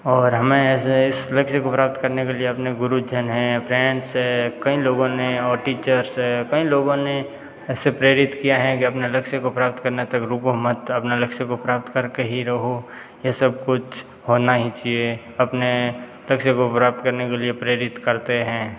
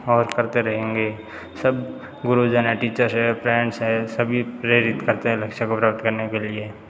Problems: none marked